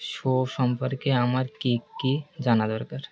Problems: constant background noise